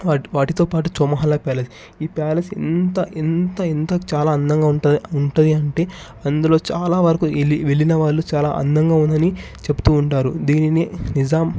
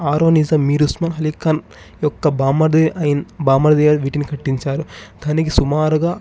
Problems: background sounds at intervals